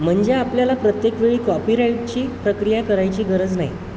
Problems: constant background noise